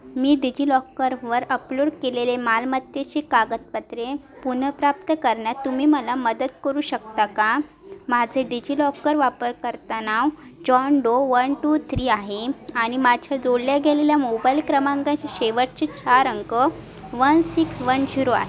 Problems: none marked